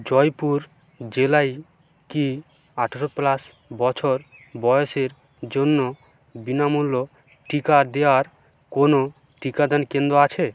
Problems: constant background noise